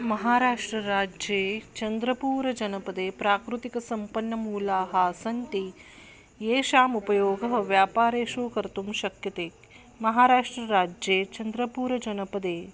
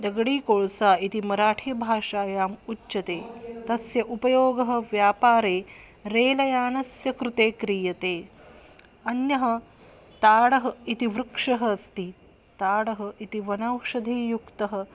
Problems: background sounds at intervals